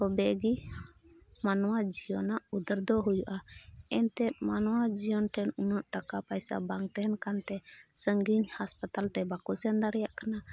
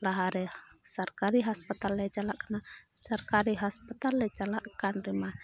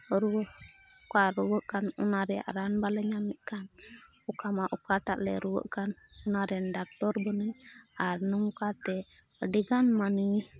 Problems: background sounds at intervals, background conversations at intervals